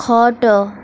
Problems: constant background noise